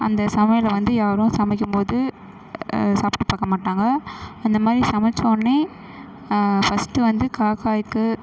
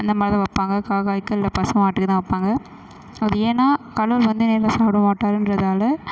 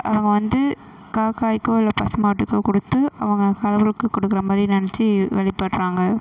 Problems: background sounds at intervals